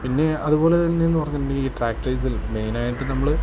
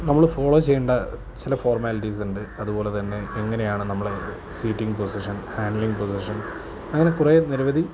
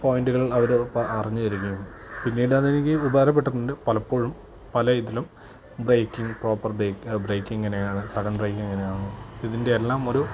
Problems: constant background noise, low volume